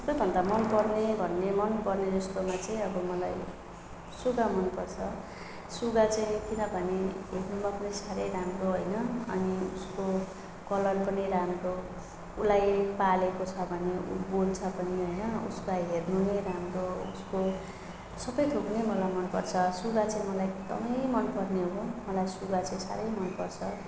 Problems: none marked